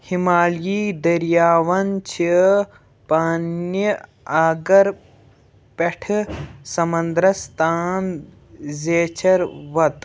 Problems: background sounds at intervals, background conversations at intervals